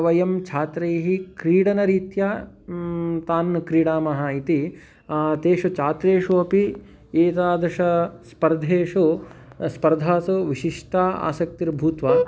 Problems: background sounds at intervals